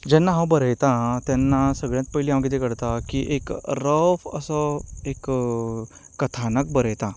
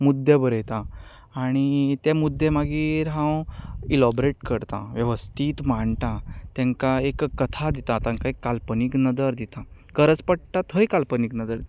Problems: constant background noise